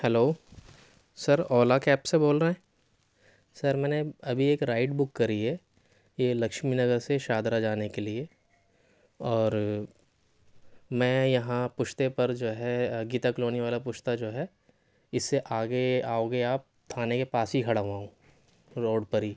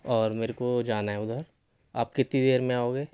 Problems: none marked